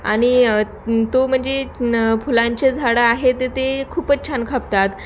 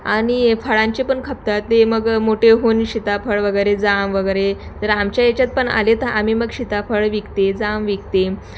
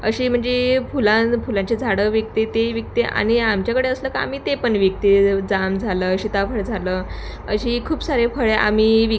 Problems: constant background noise, background conversations at intervals